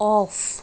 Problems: none marked